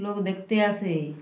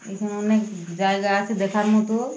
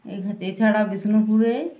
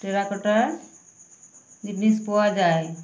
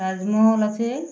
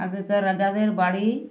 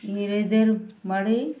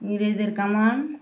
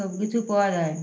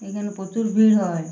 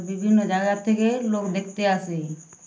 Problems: none marked